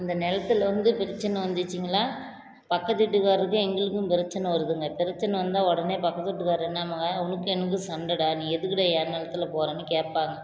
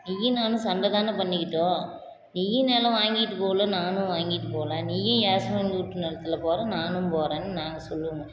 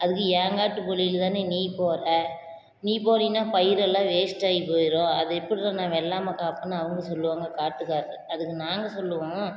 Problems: none marked